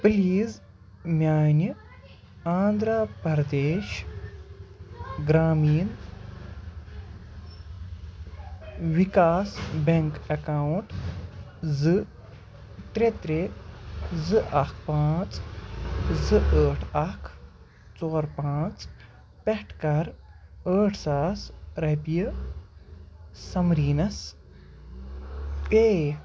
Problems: background sounds at intervals, continuous background conversations